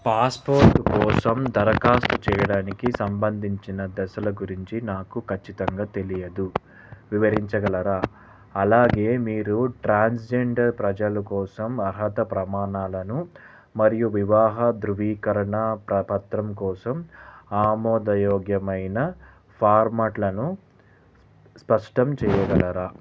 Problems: background sounds at intervals